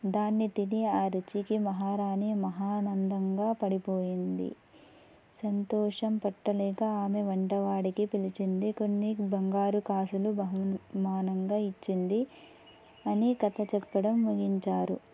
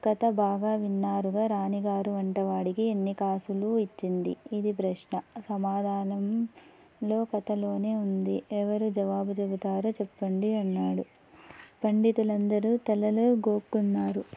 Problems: background sounds at intervals